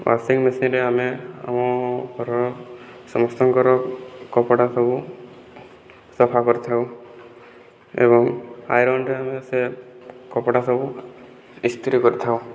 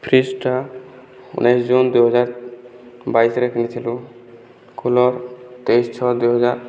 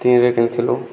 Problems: none marked